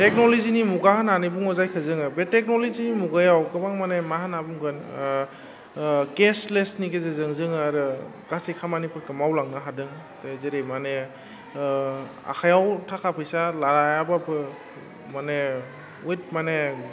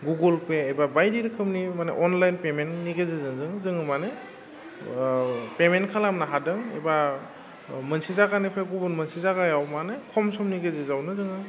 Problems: low volume